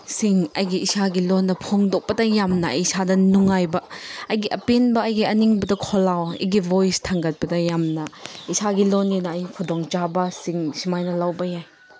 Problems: background sounds at intervals